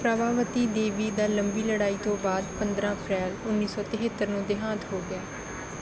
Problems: constant background noise